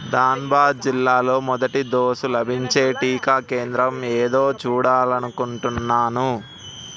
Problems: none marked